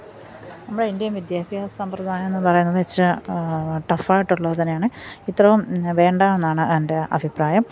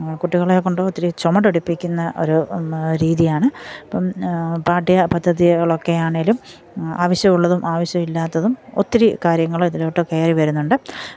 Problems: background sounds at intervals